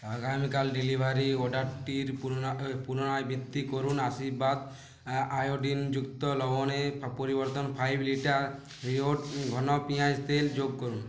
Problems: constant background noise